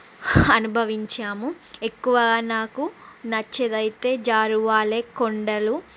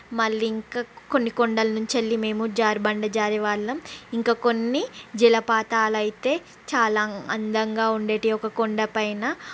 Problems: constant background noise